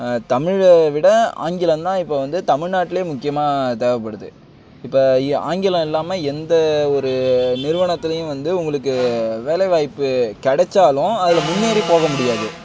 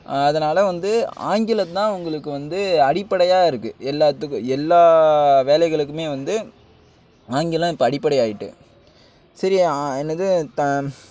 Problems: constant background noise